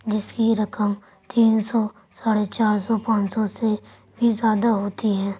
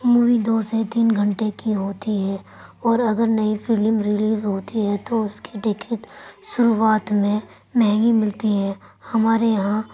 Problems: none marked